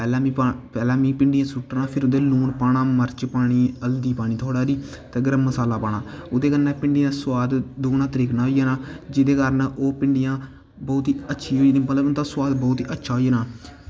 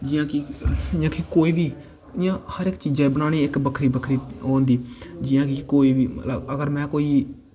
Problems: none marked